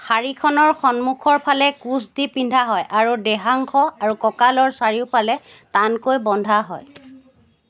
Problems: background sounds at intervals